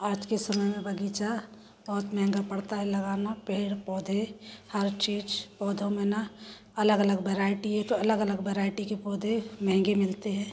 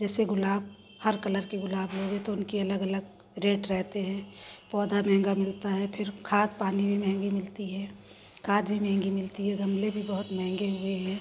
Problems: constant background noise